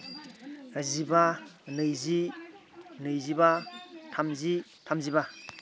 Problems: background conversations at intervals